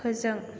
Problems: constant background noise